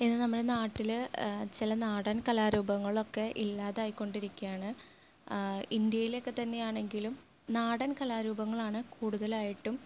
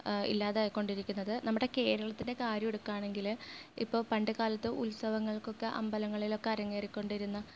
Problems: low volume